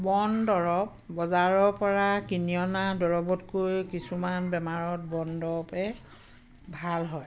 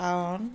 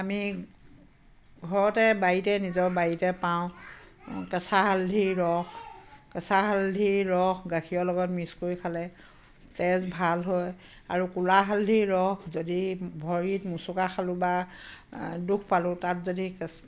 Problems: constant background noise, background conversations at intervals